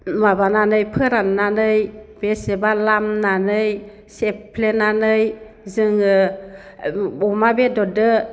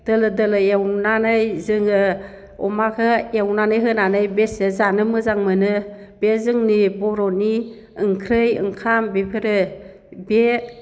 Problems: constant background noise